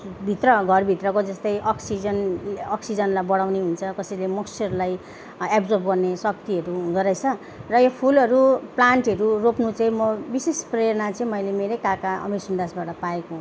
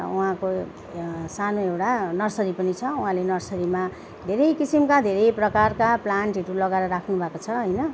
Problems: background sounds at intervals